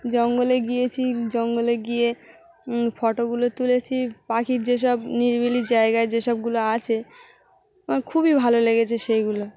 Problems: none marked